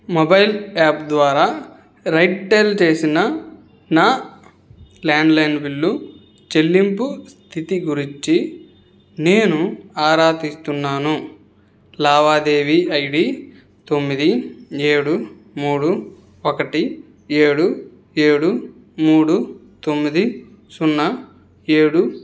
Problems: none marked